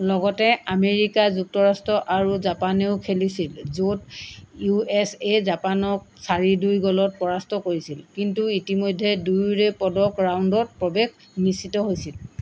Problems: none marked